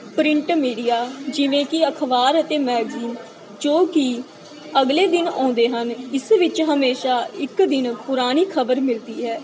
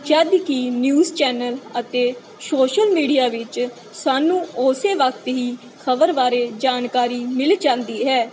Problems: constant background noise